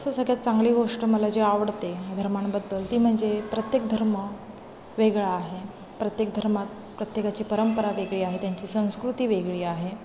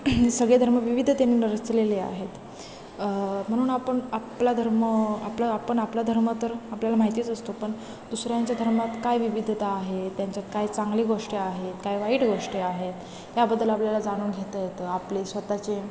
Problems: constant background noise, continuous background conversations